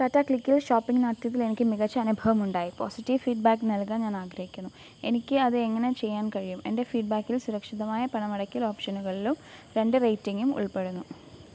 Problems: constant background noise, low volume